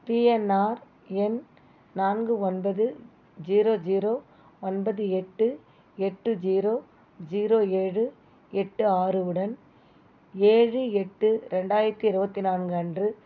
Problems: background sounds at intervals